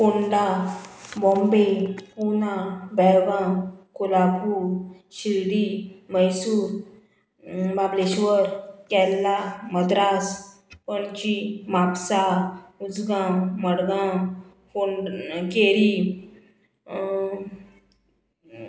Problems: background sounds at intervals